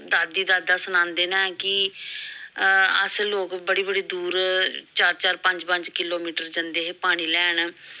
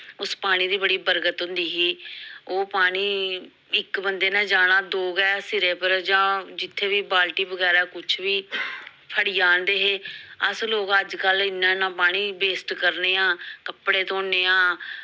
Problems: background sounds at intervals